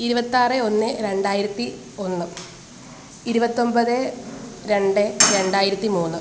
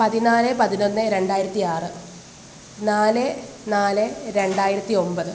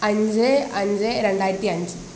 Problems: background sounds at intervals